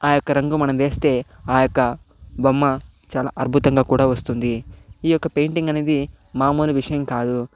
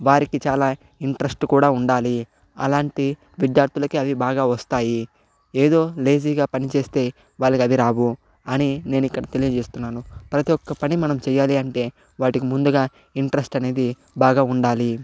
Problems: none marked